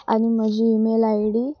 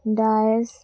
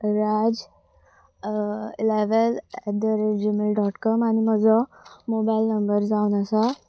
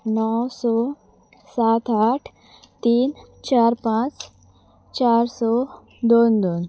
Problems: constant background noise